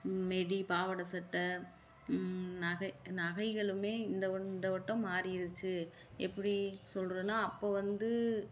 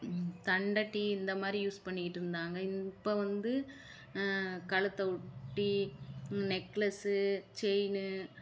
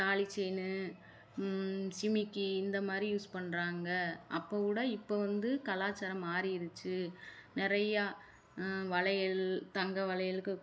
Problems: none marked